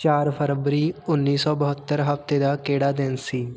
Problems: background sounds at intervals